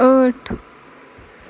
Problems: none marked